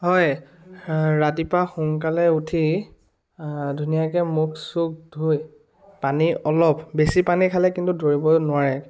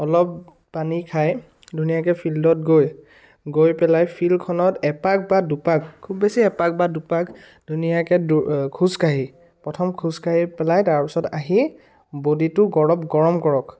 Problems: none marked